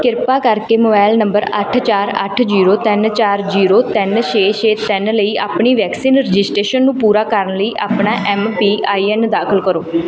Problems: background sounds at intervals